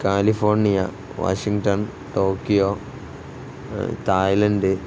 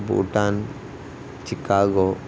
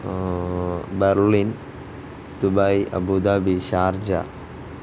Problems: constant background noise